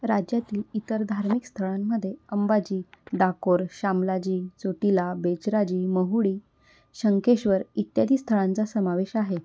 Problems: constant background noise